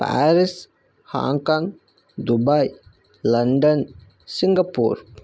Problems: none marked